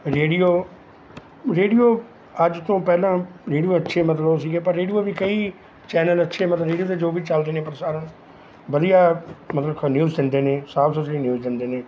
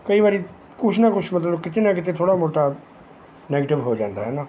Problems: none marked